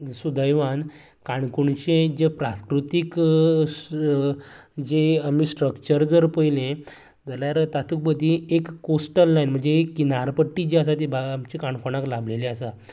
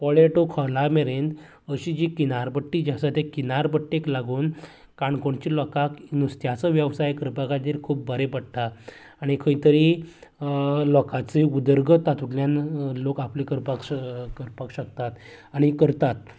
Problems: background sounds at intervals